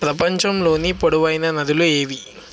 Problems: constant background noise